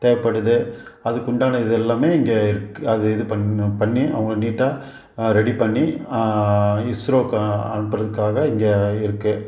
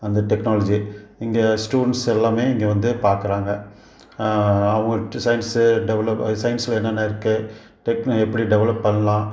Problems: background sounds at intervals